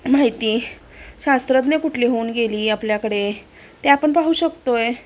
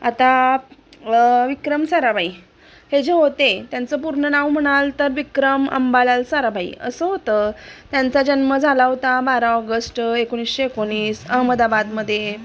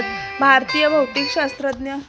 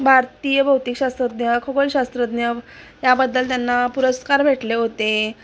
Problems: constant background noise, continuous background conversations